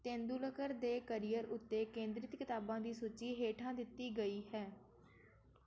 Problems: background sounds at intervals